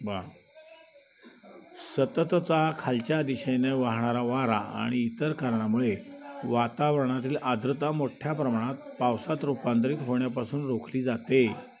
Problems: constant background noise, continuous background conversations